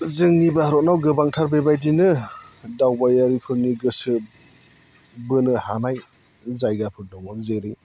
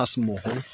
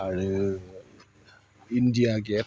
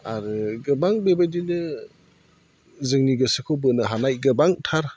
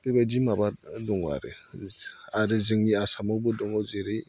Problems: constant background noise